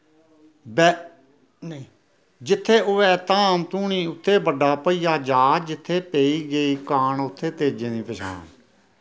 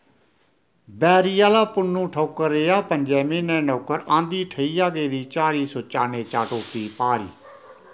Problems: none marked